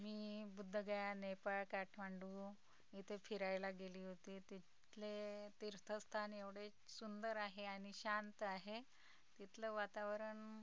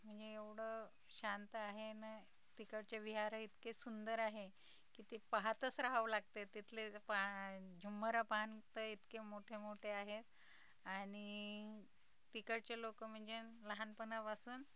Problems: background sounds at intervals, background conversations at intervals, low volume